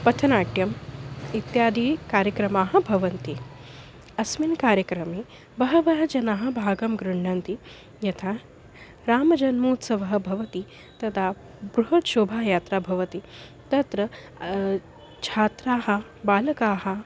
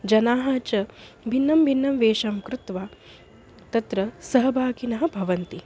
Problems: none marked